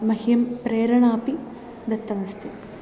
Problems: none marked